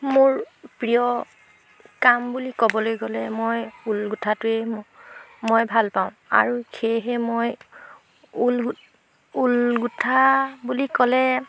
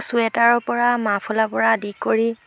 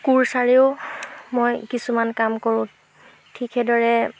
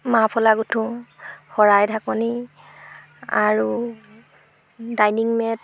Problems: background sounds at intervals